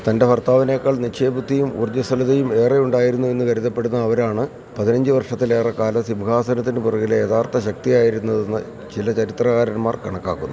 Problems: constant background noise